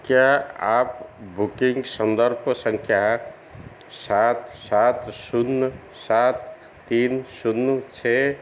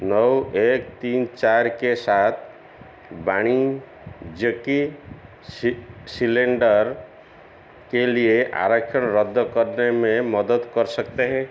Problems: constant background noise